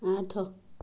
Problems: none marked